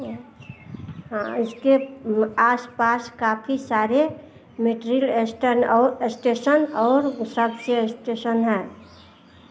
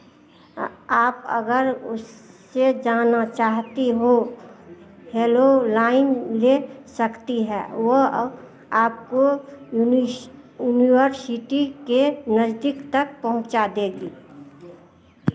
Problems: constant background noise